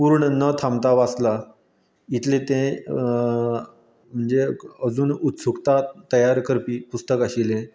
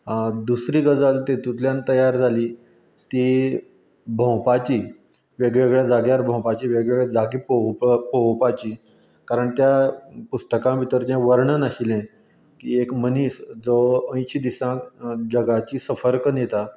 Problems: none marked